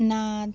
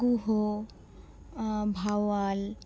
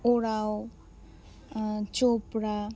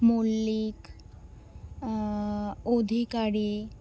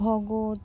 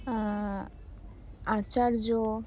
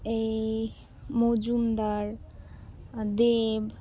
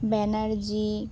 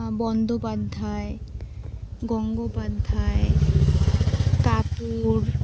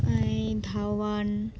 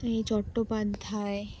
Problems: constant background noise, continuous background conversations